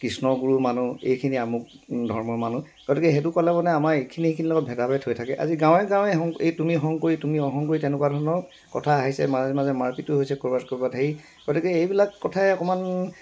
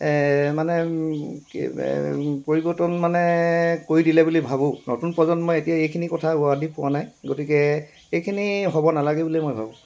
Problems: constant background noise